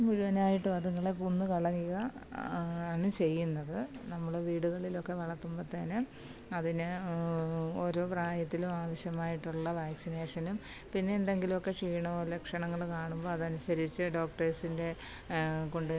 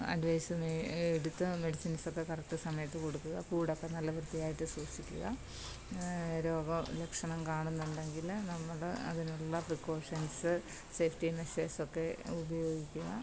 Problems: low volume